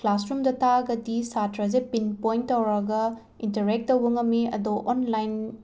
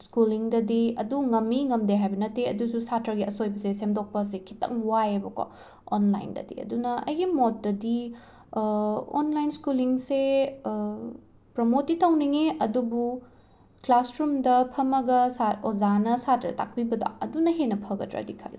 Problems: background sounds at intervals